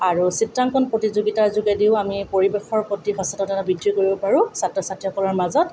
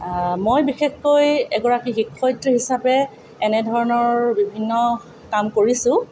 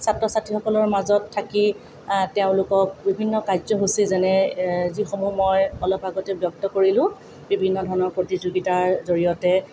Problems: none marked